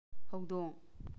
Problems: low volume